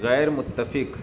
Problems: background sounds at intervals